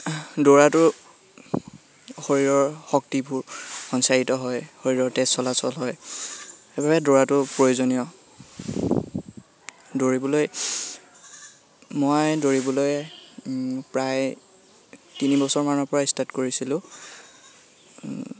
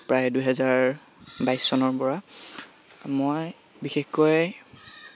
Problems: constant background noise